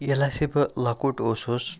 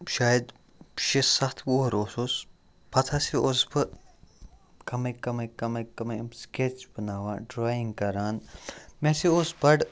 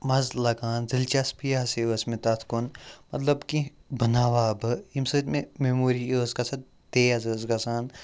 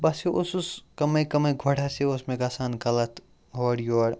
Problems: none marked